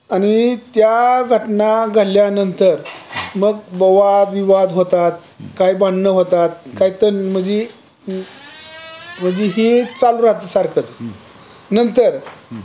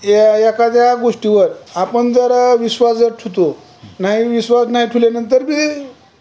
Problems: background sounds at intervals, continuous background conversations